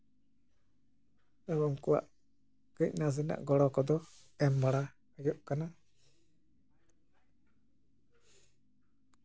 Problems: none marked